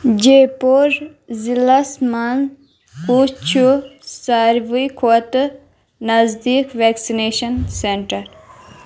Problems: background sounds at intervals